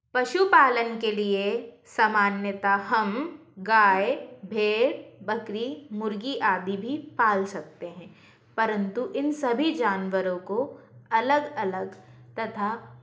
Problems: constant background noise